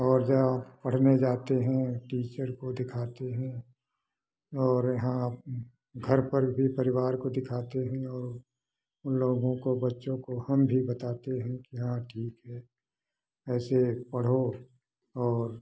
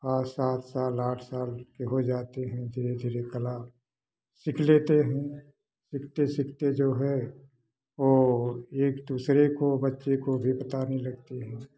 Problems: none marked